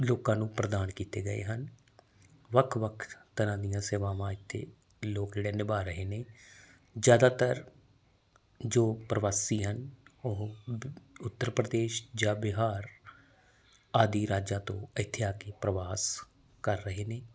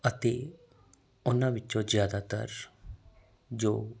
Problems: background sounds at intervals